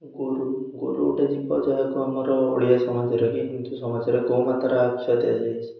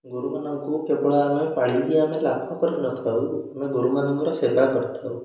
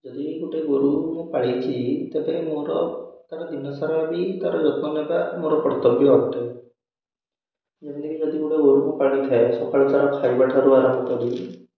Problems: echo